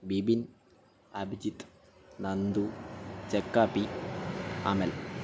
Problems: constant background noise